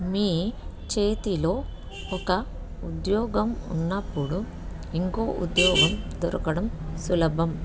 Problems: background sounds at intervals